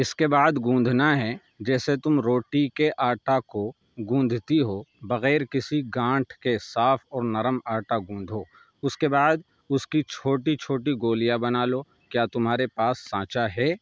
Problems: none marked